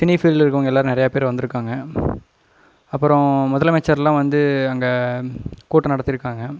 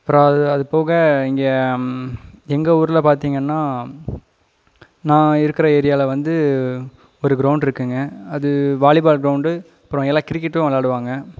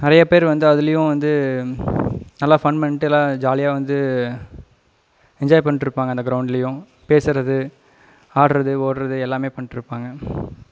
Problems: background sounds at intervals